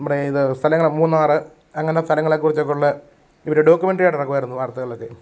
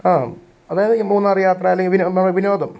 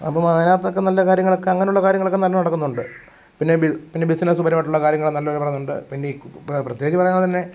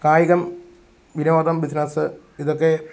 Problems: none marked